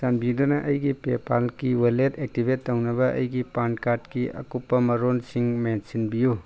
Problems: background sounds at intervals